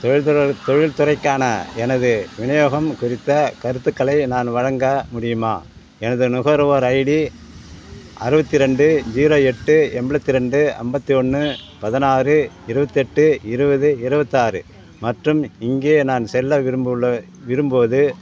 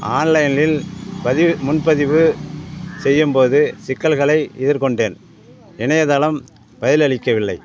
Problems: background sounds at intervals